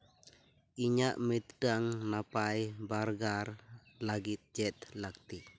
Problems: none marked